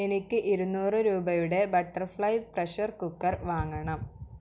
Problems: none marked